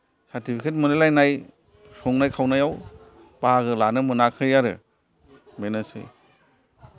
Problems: background sounds at intervals, background conversations at intervals